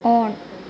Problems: constant background noise, low volume